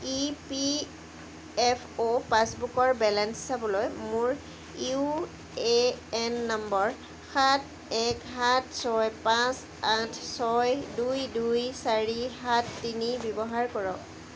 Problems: background sounds at intervals